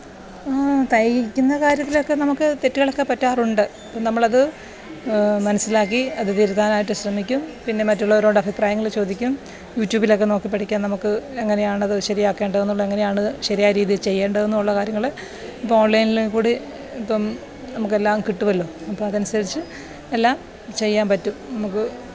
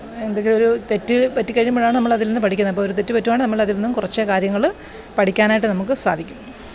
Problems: background sounds at intervals